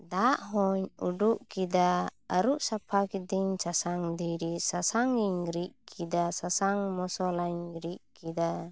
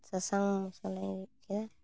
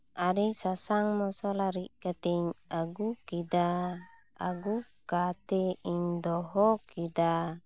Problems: none marked